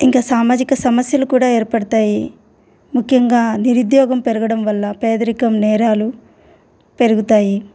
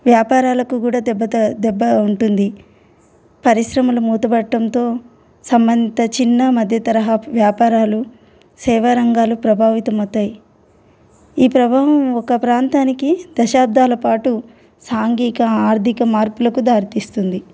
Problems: constant background noise